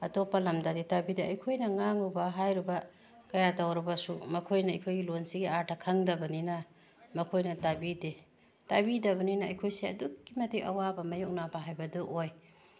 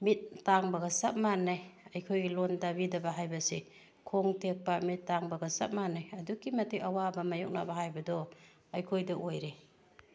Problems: background sounds at intervals